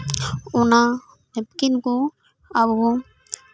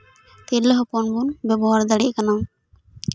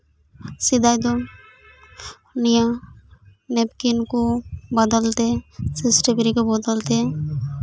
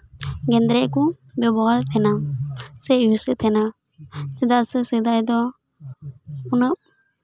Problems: constant background noise, continuous background conversations